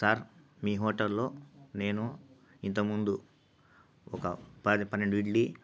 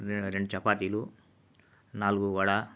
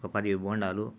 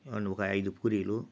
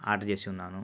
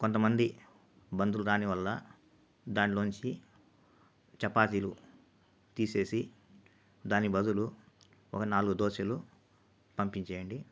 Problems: constant background noise